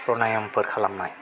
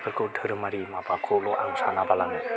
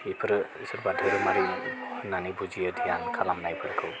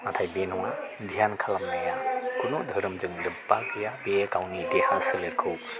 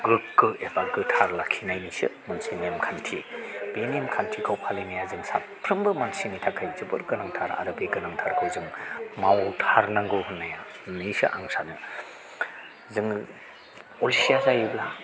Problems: none marked